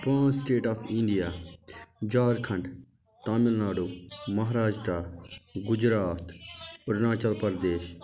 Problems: continuous background conversations